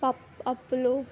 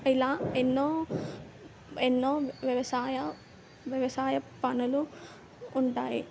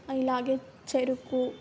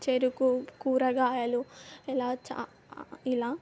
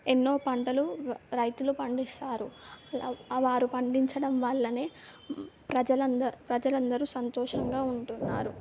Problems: background sounds at intervals